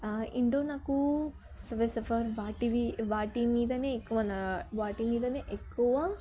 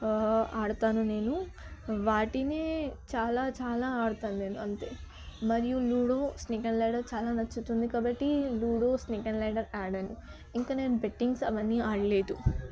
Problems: background conversations at intervals, low volume